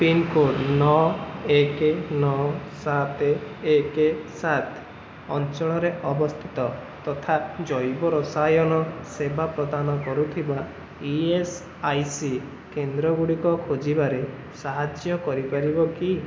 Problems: constant background noise